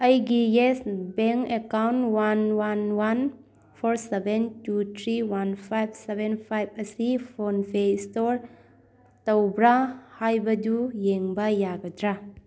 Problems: background conversations at intervals